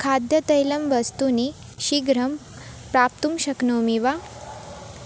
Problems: constant background noise